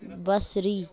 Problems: background conversations at intervals